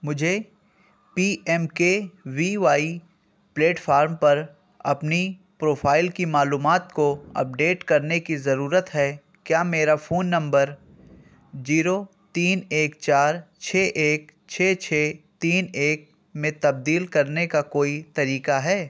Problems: constant background noise